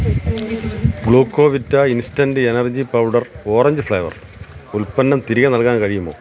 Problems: constant background noise